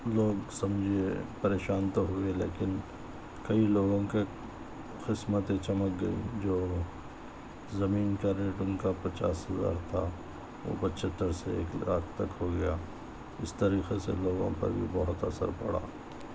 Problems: background sounds at intervals, low volume